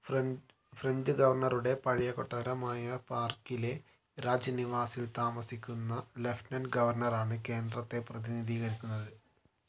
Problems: low volume